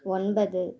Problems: none marked